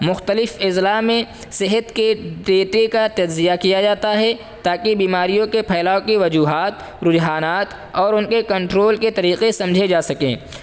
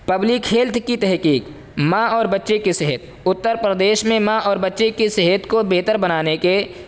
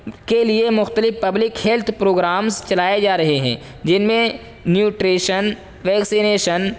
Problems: constant background noise